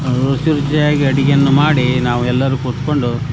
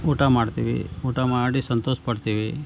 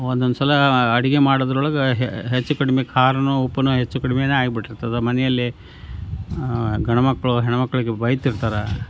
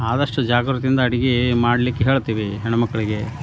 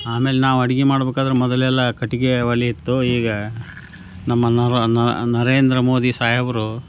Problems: none marked